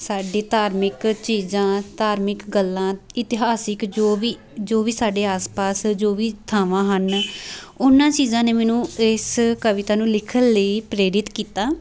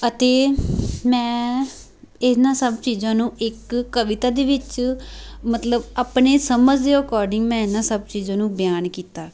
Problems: none marked